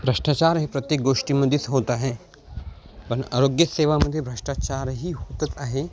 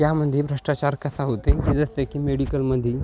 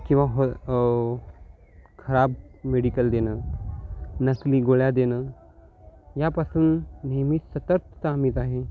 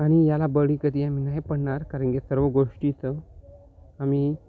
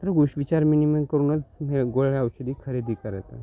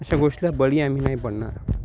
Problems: none marked